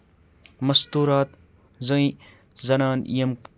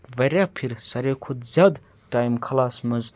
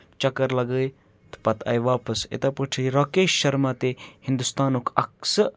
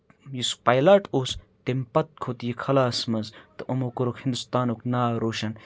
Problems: none marked